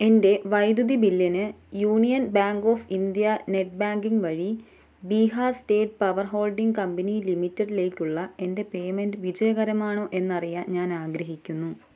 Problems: low volume